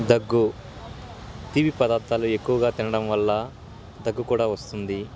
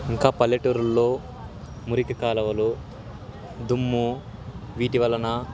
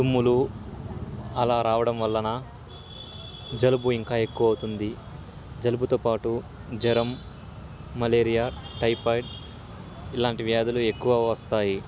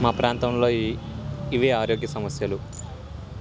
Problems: constant background noise